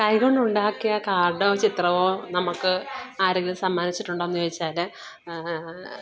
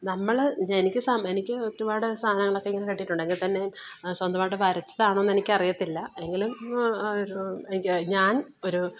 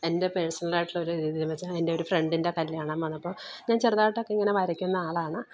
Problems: background sounds at intervals